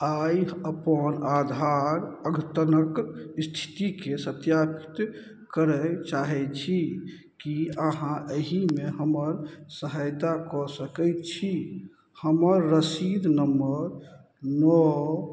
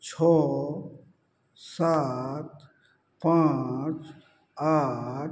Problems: none marked